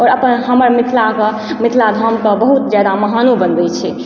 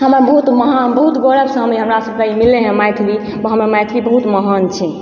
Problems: background sounds at intervals, background conversations at intervals